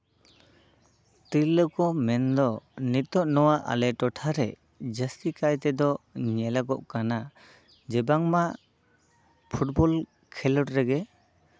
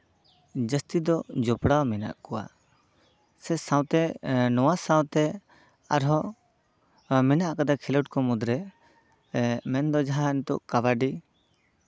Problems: background sounds at intervals